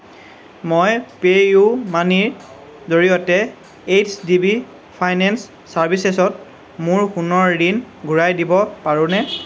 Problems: none marked